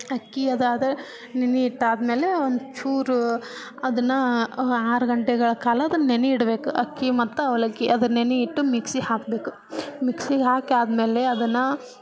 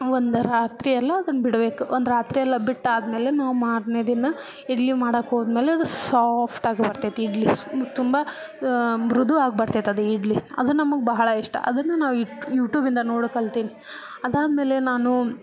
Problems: none marked